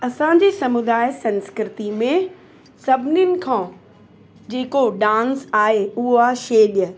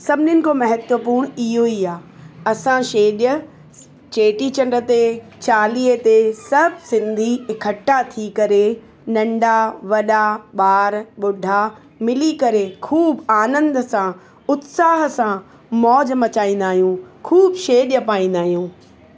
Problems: constant background noise, echo